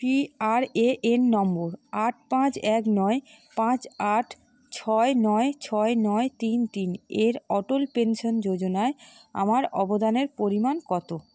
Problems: constant background noise